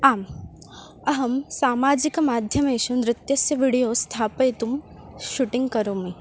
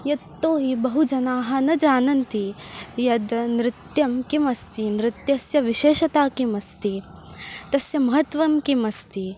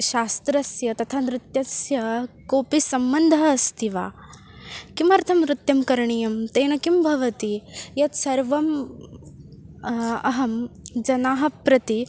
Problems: constant background noise, continuous background conversations